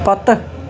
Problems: constant background noise